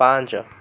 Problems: constant background noise